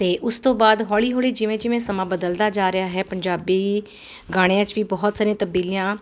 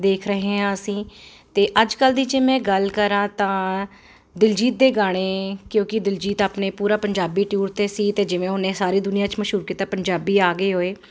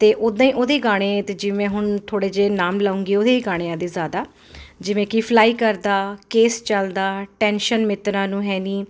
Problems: constant background noise